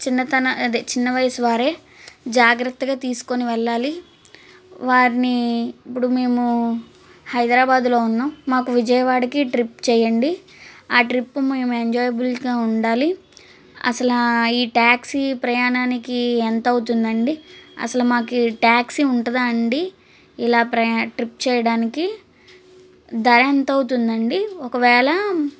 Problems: constant background noise